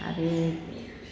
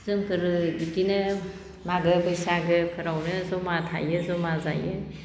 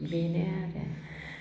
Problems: constant background noise